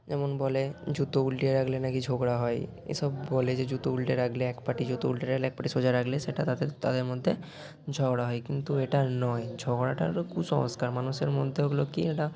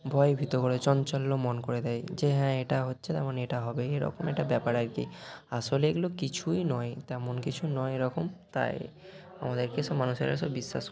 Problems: constant background noise